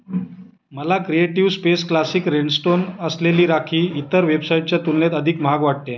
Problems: none marked